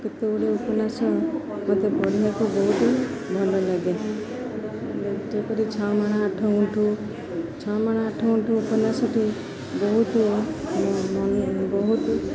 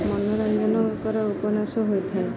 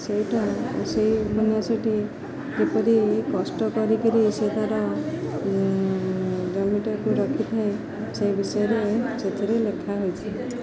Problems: none marked